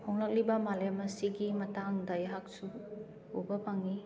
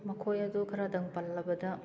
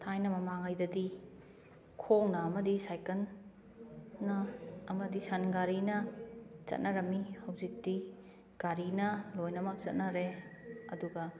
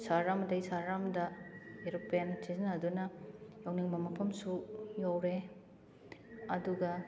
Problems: constant background noise